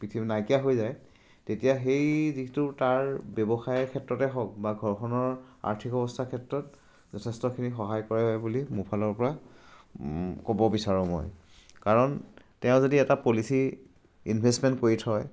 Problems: none marked